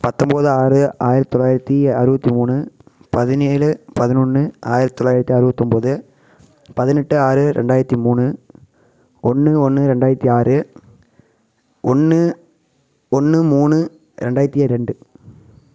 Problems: constant background noise